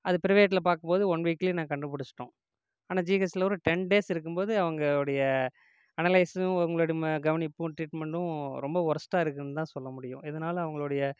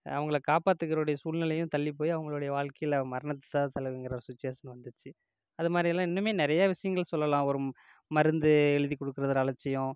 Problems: none marked